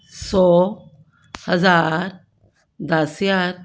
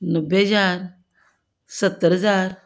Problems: background sounds at intervals